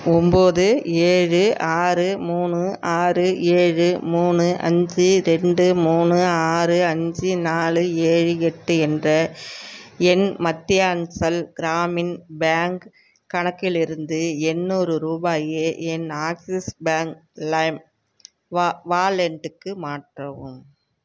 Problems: background sounds at intervals